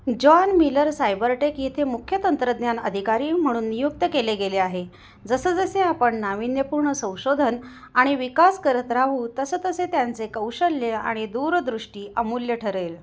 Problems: constant background noise, echo